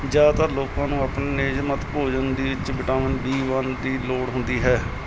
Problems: background sounds at intervals